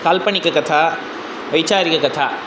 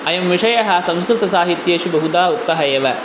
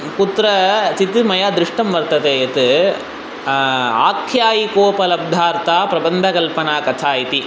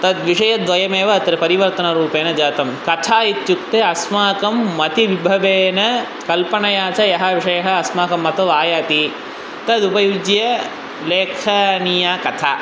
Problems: constant background noise